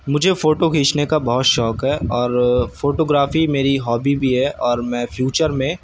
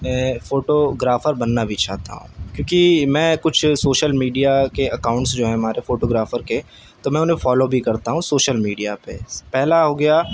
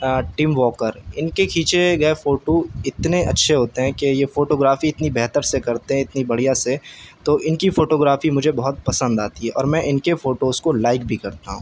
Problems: none marked